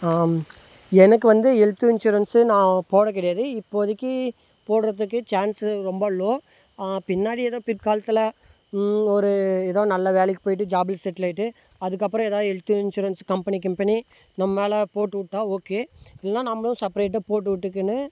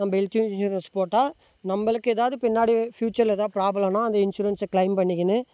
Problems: constant background noise